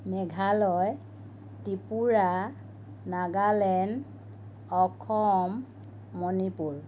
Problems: constant background noise